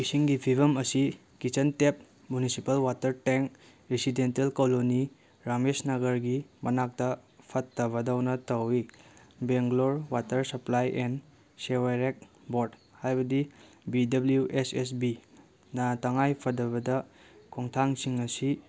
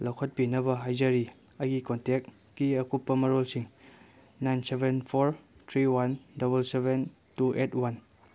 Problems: background sounds at intervals